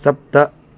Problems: constant background noise